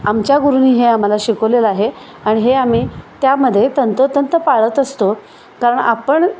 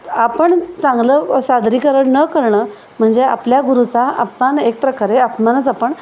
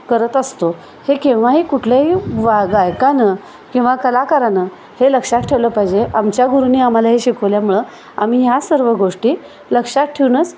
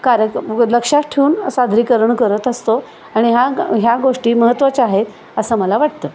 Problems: constant background noise, continuous background conversations